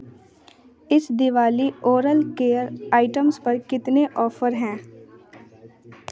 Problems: background sounds at intervals, continuous background conversations